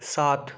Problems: none marked